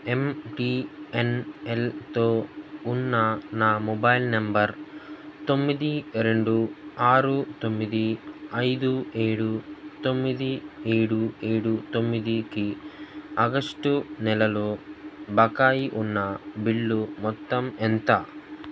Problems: none marked